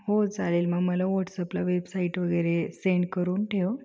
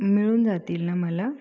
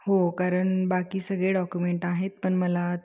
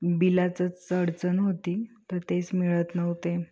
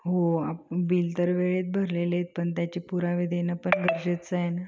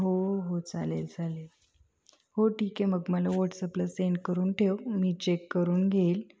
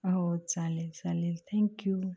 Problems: none marked